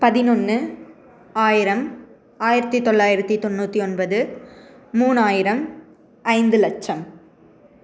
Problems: background conversations at intervals